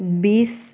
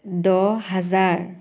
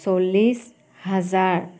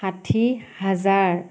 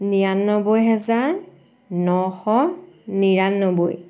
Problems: background sounds at intervals